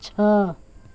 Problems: constant background noise